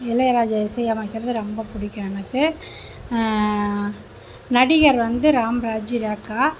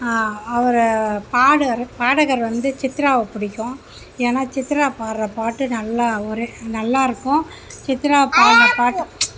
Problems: constant background noise